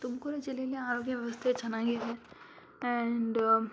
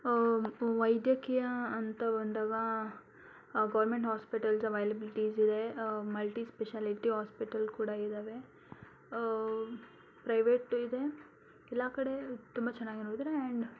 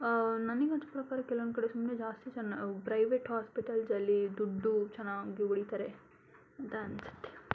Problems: none marked